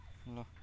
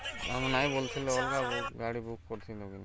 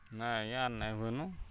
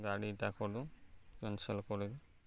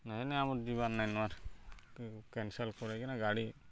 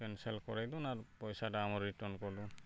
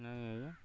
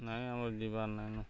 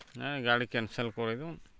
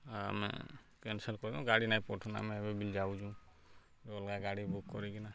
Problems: none marked